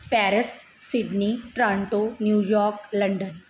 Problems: background sounds at intervals